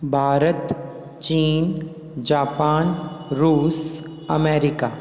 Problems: constant background noise, echo